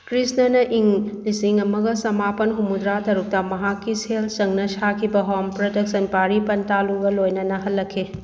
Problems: background sounds at intervals